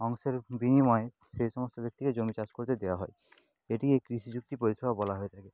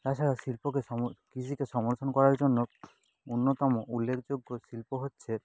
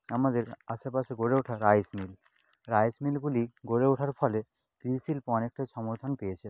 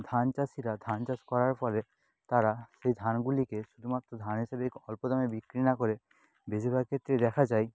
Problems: none marked